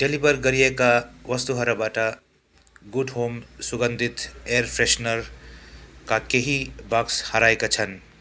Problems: none marked